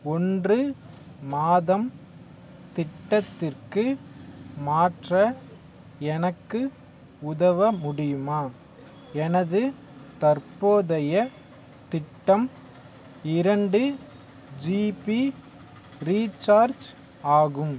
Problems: background sounds at intervals